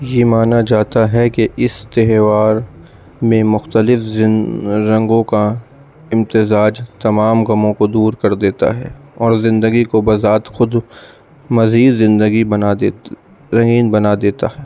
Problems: background sounds at intervals, background conversations at intervals